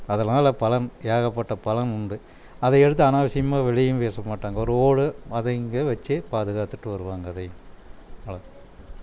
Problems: none marked